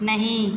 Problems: constant background noise, continuous background conversations